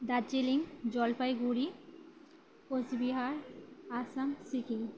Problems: none marked